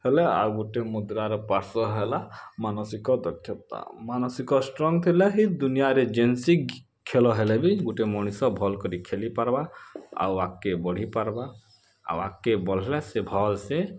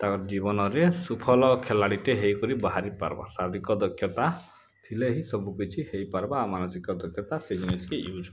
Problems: background sounds at intervals